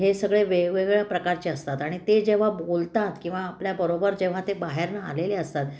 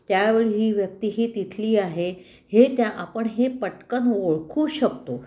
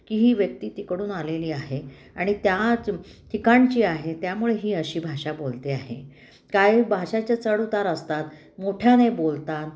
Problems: none marked